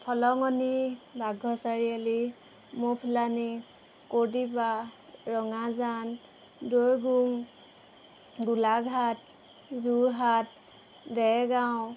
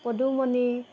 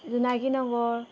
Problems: background sounds at intervals